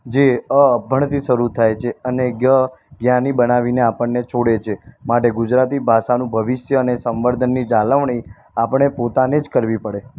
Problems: constant background noise